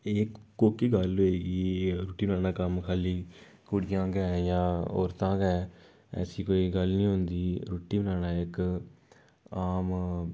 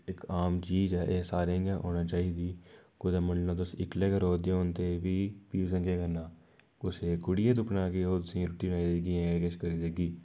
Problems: background sounds at intervals